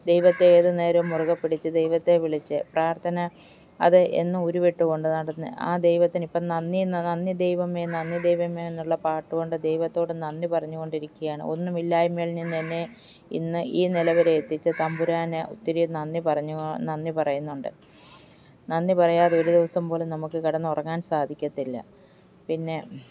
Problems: background sounds at intervals